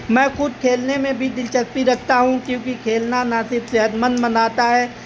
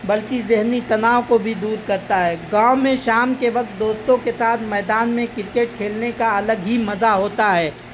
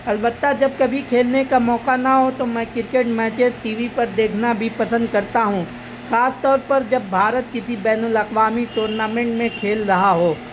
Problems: constant background noise